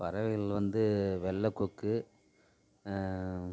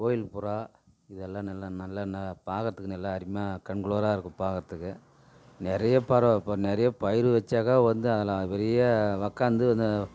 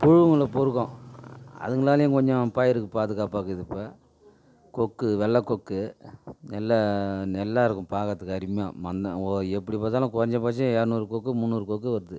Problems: none marked